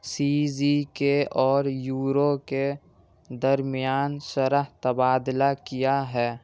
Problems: constant background noise